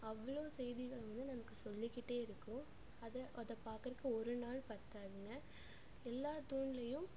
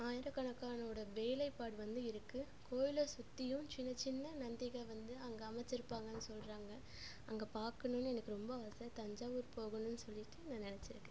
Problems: low volume